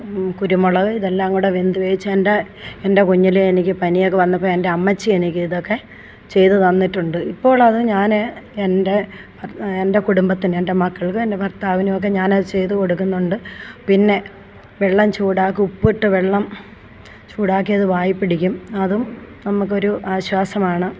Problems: none marked